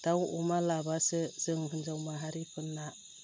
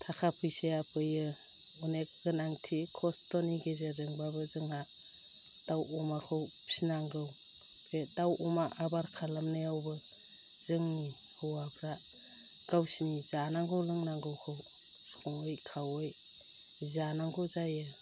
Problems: low volume